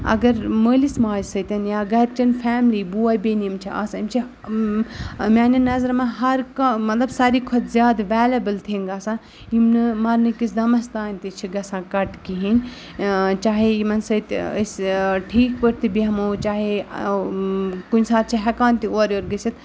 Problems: none marked